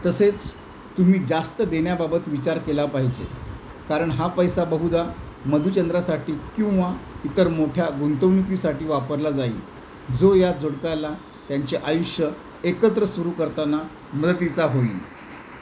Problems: constant background noise